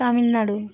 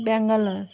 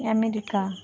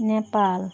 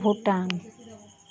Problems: background sounds at intervals